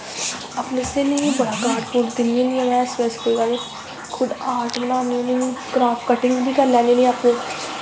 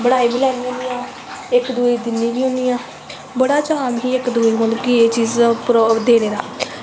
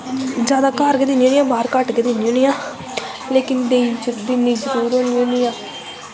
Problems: constant background noise, echo